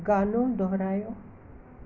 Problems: constant background noise